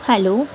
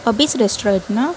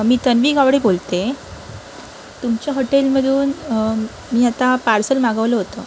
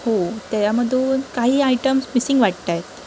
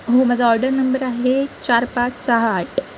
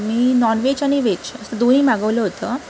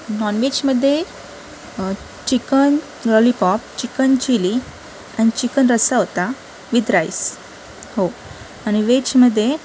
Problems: constant background noise, background conversations at intervals